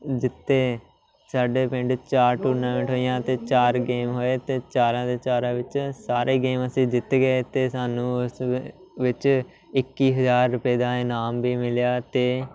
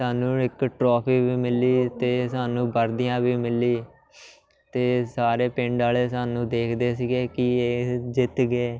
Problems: constant background noise, continuous background conversations